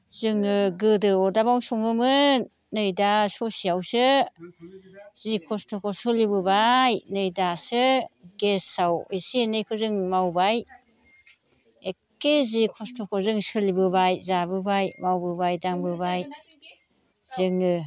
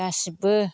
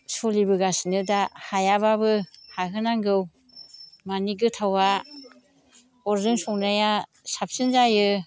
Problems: constant background noise